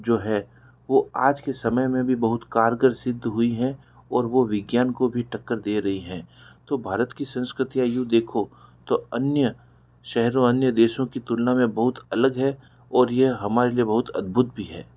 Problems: background sounds at intervals